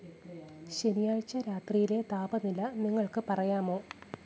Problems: none marked